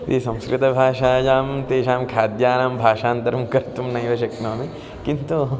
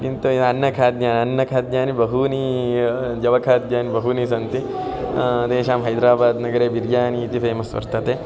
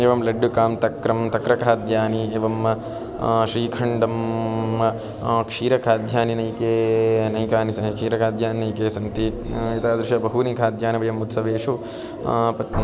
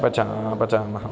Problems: continuous background conversations